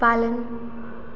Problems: constant background noise, echo